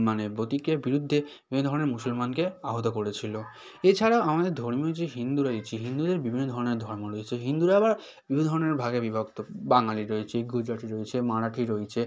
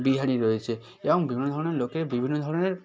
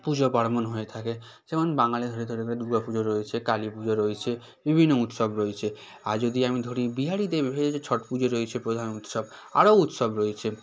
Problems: constant background noise, background conversations at intervals